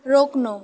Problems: background sounds at intervals